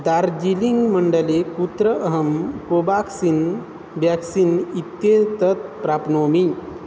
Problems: constant background noise